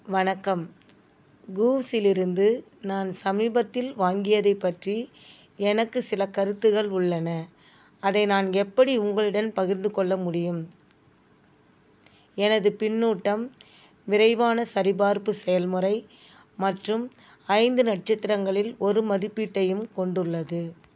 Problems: background sounds at intervals